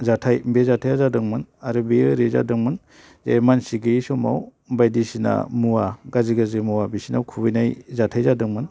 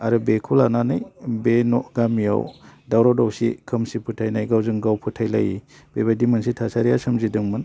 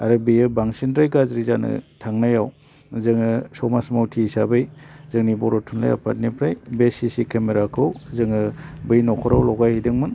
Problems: low volume